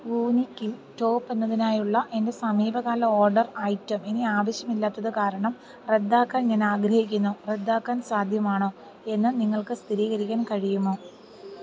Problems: none marked